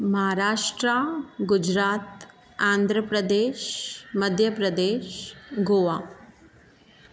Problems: none marked